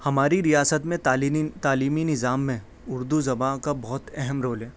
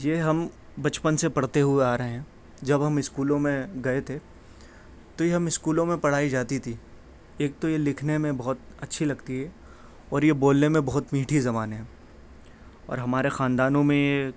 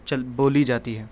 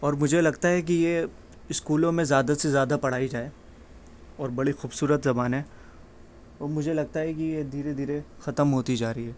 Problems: constant background noise